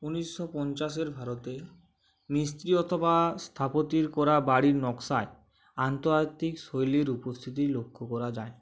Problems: none marked